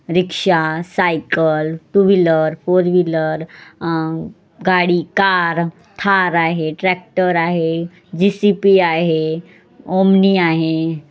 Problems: background sounds at intervals